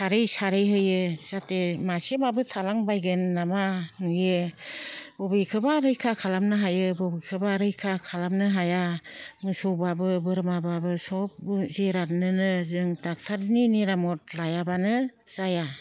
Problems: low volume